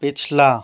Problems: none marked